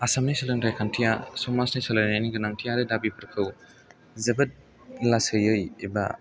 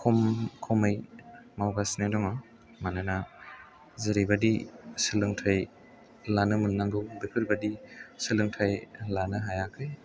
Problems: low volume